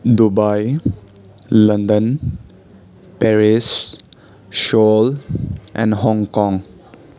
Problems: none marked